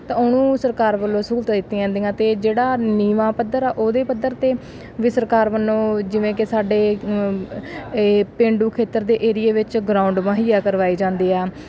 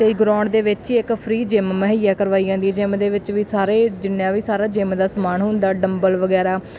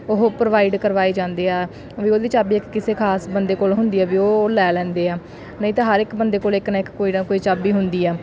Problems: background sounds at intervals